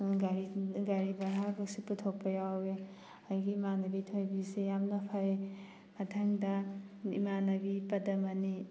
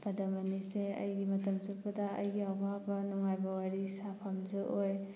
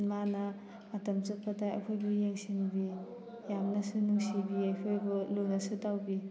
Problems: background sounds at intervals